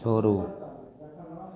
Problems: none marked